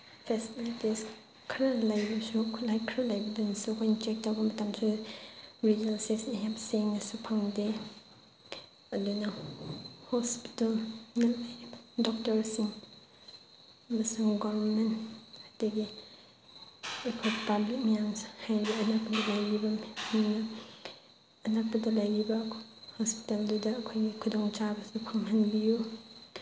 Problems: constant background noise